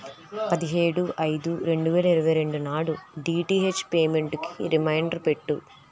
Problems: none marked